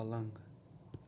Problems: low volume